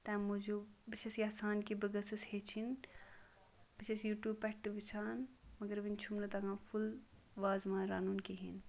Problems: background sounds at intervals, low volume